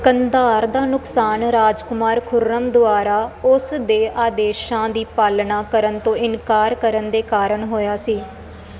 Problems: constant background noise